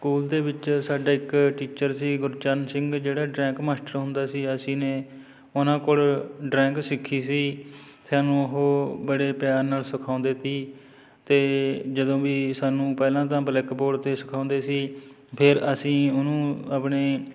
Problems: background sounds at intervals